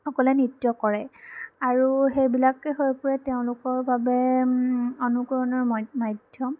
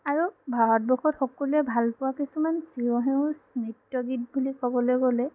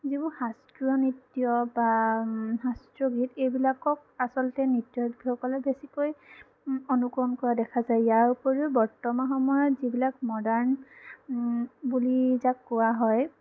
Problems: none marked